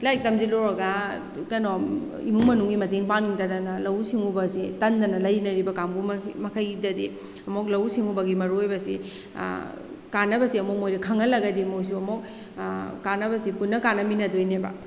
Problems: background sounds at intervals